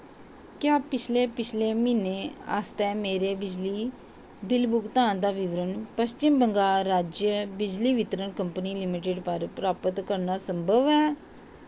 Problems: constant background noise